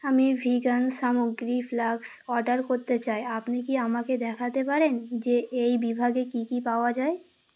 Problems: none marked